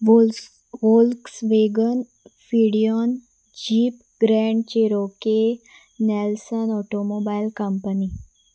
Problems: none marked